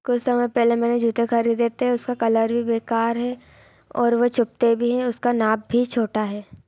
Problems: constant background noise